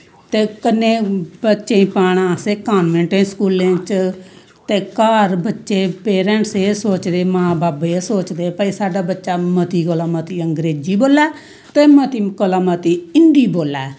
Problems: none marked